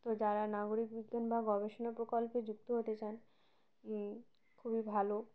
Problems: none marked